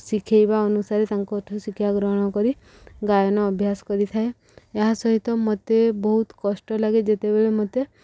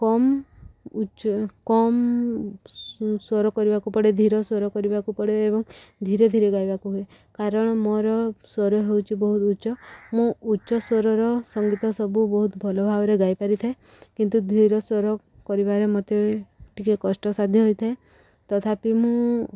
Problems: background sounds at intervals